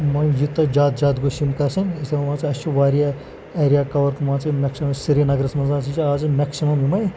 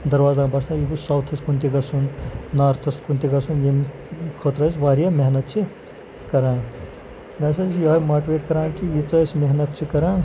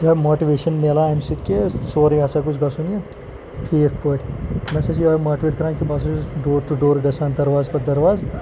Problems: constant background noise